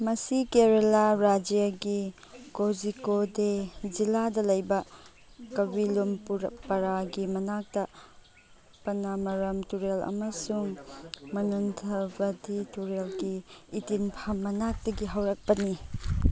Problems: background conversations at intervals